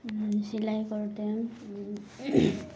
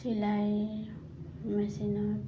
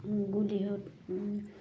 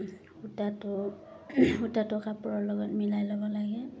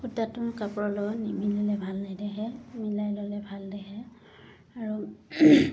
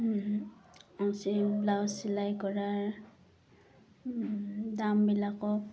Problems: constant background noise